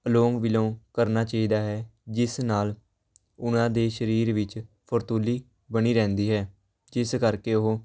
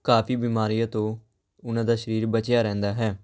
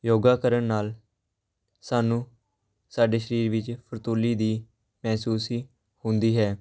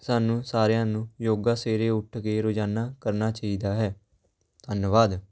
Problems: background sounds at intervals, background conversations at intervals